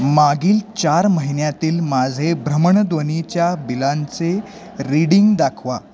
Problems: none marked